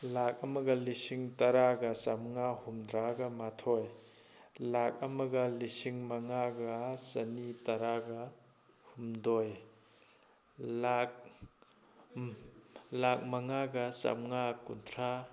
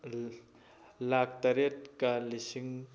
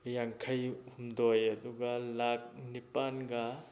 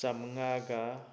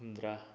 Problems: background sounds at intervals